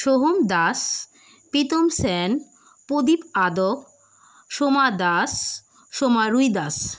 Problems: constant background noise